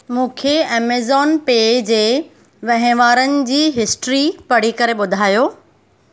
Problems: constant background noise